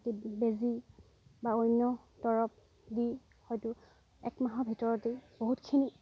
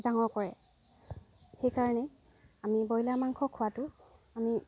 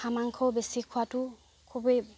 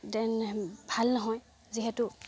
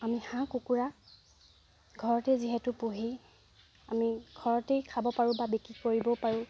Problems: none marked